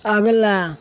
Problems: constant background noise